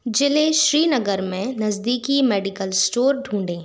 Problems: constant background noise